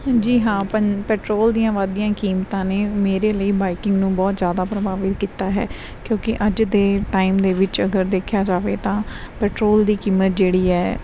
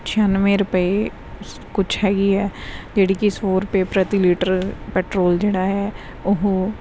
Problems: none marked